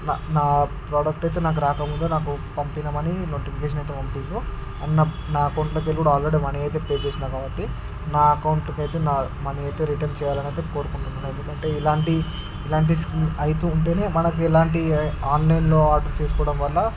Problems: none marked